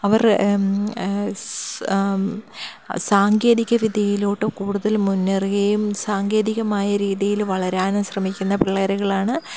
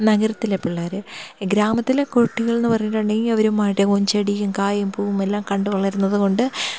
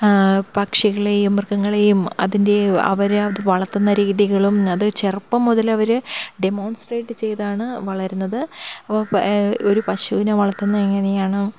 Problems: none marked